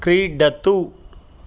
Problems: none marked